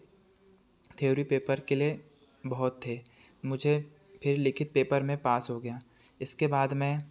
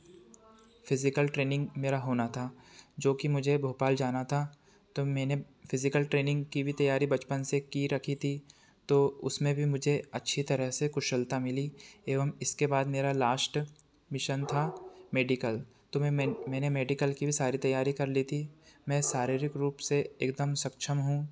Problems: none marked